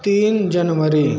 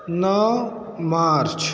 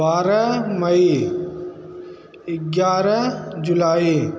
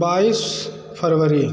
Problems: constant background noise